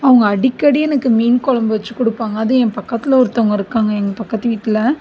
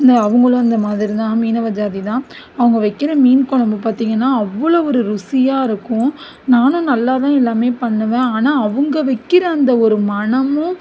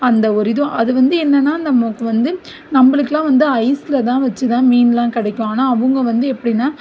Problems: background sounds at intervals